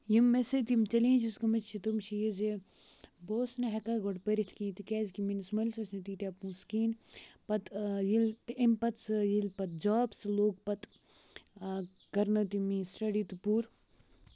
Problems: background sounds at intervals